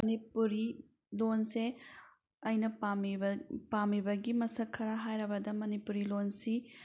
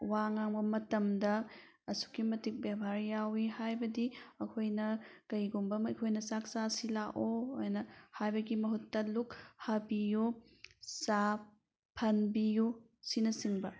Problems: background sounds at intervals